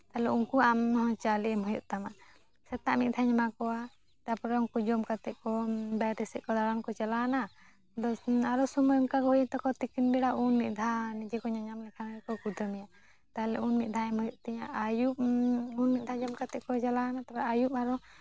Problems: none marked